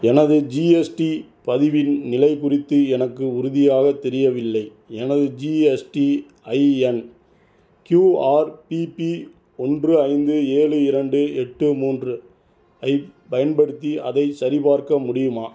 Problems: none marked